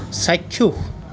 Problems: constant background noise